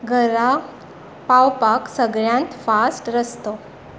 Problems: background sounds at intervals